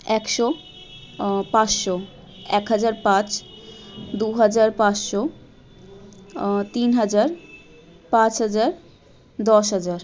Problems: continuous background conversations